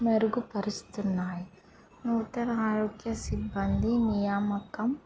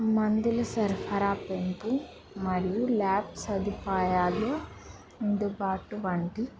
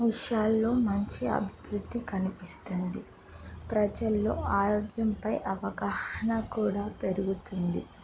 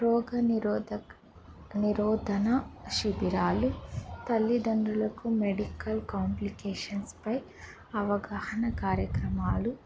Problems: background sounds at intervals, background conversations at intervals